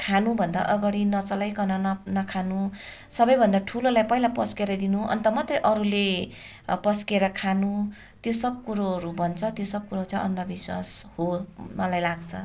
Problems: continuous background conversations